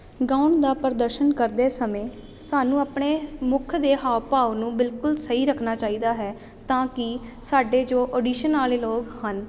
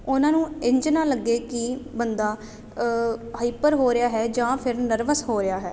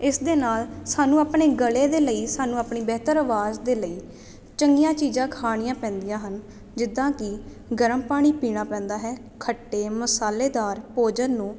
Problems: none marked